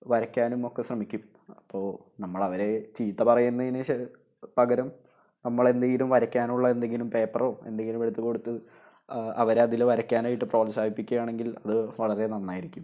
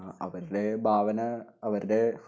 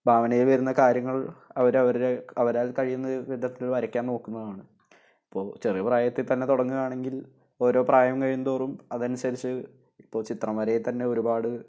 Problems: none marked